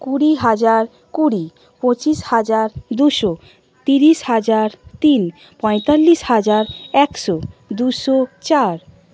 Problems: none marked